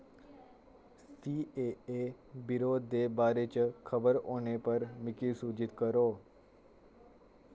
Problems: none marked